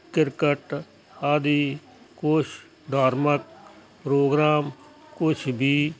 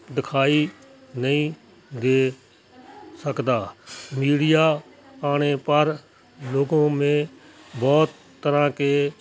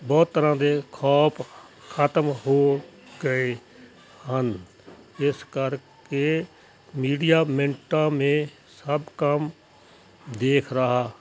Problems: constant background noise, background conversations at intervals